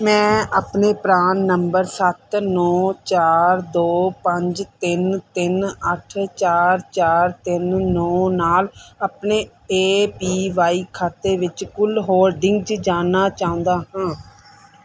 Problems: background sounds at intervals